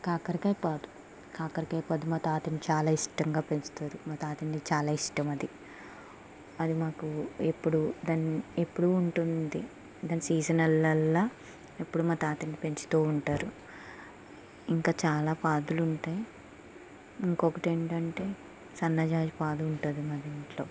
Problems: constant background noise, low volume